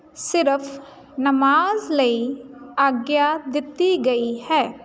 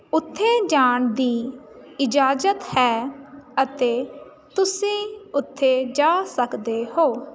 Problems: none marked